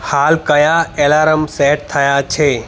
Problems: constant background noise